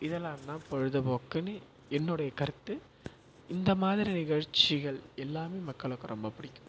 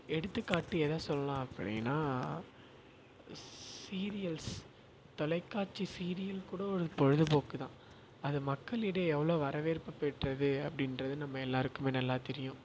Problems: constant background noise